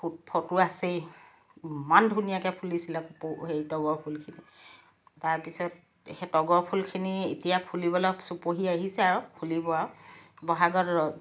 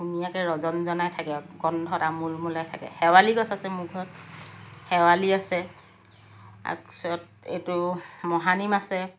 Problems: background sounds at intervals, background conversations at intervals